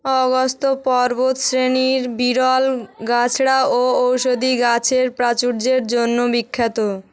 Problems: background conversations at intervals